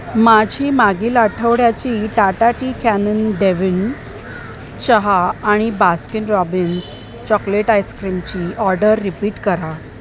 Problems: constant background noise, background conversations at intervals